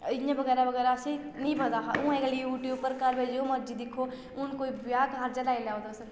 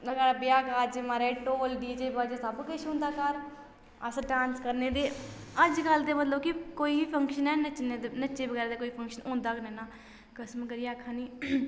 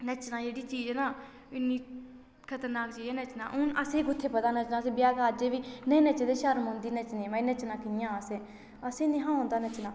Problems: low volume